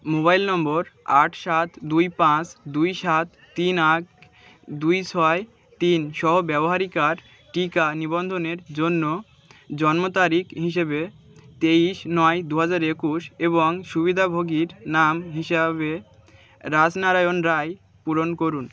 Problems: constant background noise, continuous background conversations